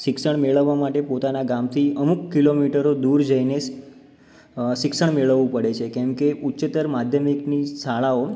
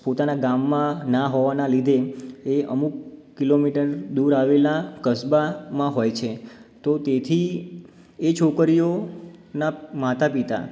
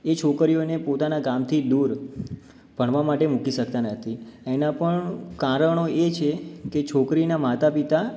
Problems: none marked